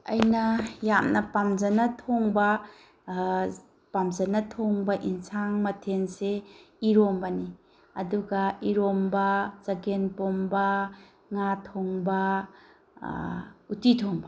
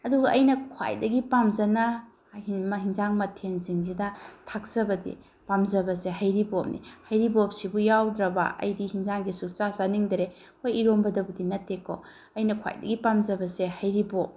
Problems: background sounds at intervals